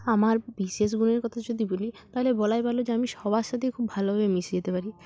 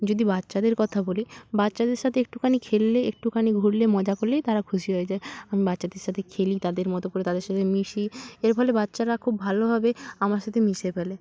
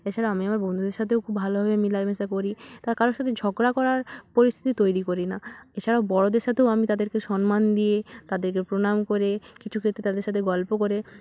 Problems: constant background noise